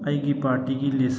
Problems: constant background noise